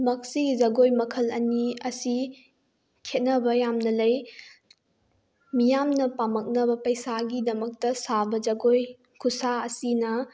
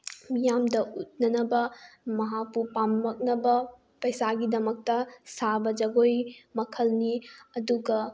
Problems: none marked